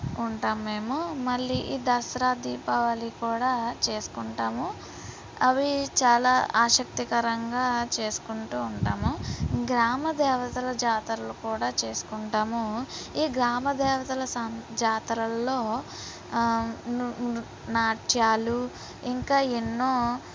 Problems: background sounds at intervals